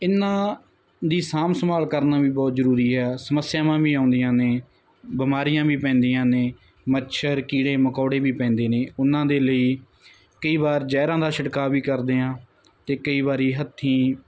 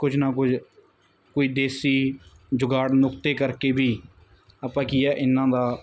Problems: none marked